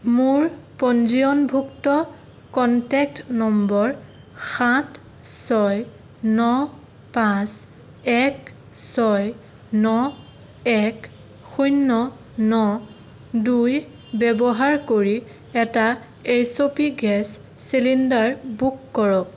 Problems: none marked